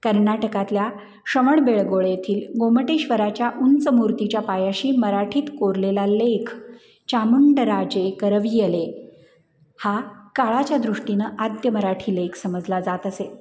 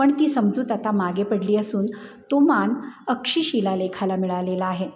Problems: none marked